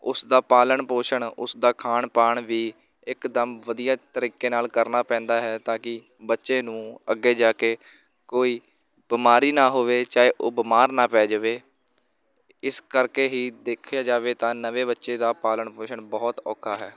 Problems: continuous background conversations